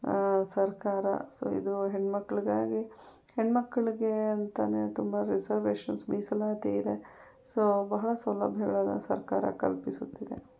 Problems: none marked